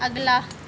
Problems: constant background noise